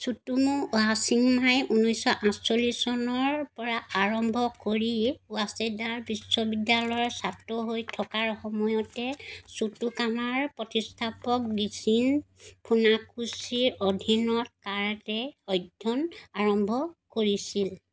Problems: constant background noise